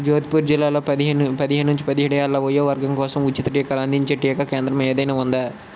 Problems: constant background noise